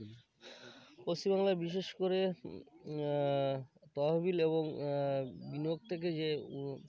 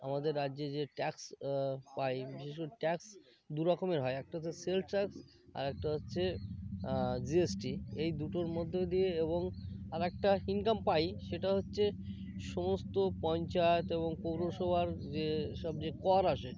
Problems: constant background noise, background conversations at intervals